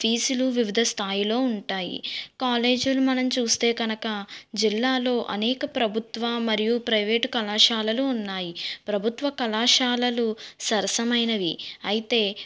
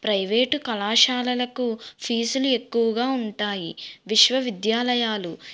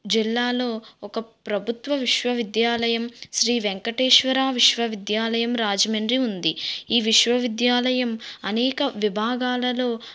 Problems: background sounds at intervals